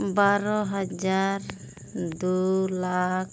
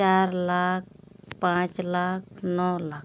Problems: constant background noise